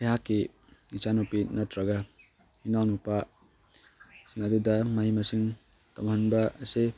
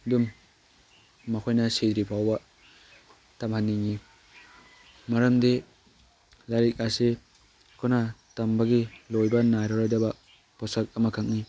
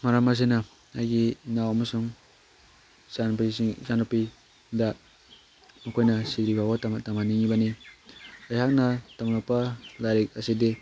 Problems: background sounds at intervals